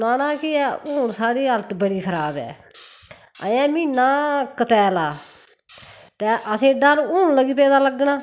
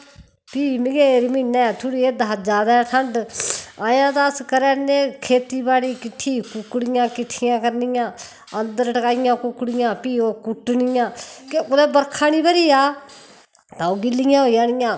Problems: constant background noise